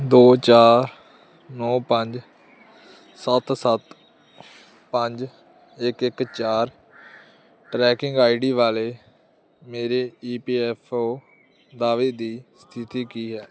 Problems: none marked